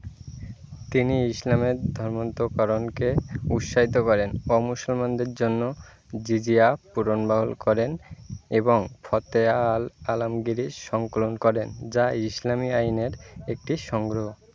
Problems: constant background noise